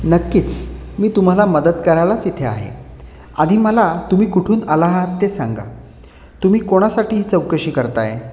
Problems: constant background noise